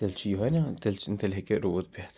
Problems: constant background noise